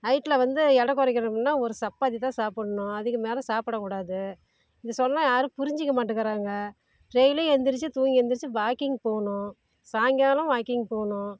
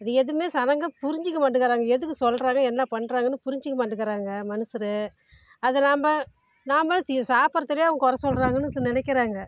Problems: none marked